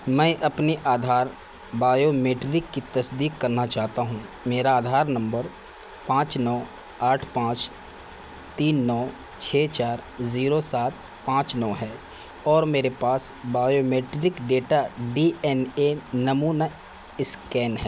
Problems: constant background noise